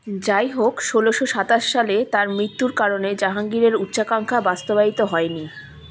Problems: none marked